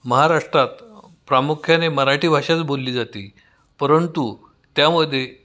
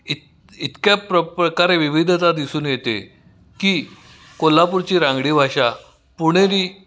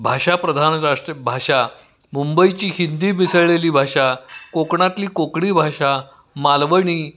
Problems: constant background noise, echo